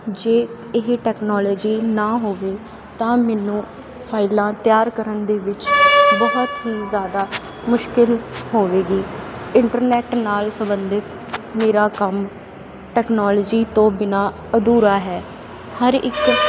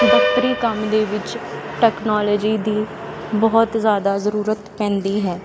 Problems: constant background noise